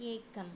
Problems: low volume